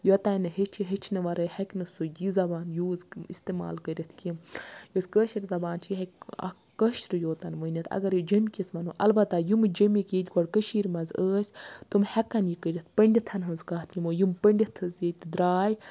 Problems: constant background noise